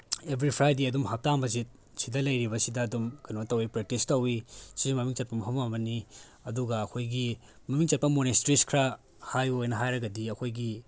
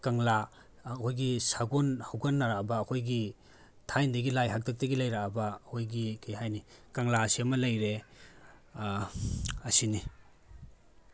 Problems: none marked